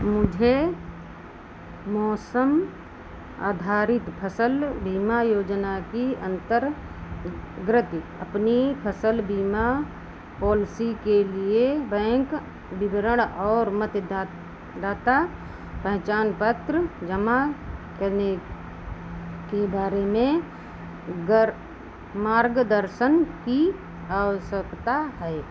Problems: constant background noise